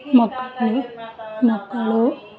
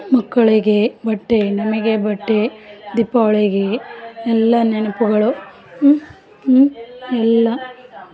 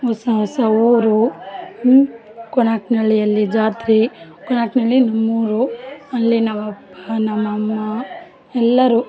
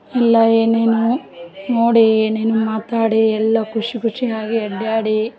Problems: background sounds at intervals